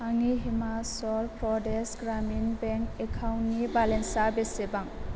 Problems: none marked